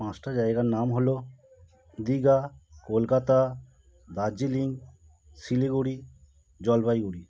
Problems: none marked